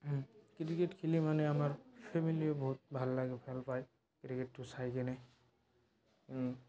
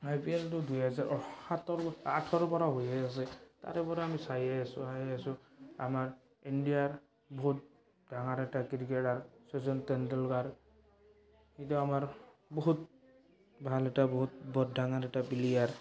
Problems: background sounds at intervals, background conversations at intervals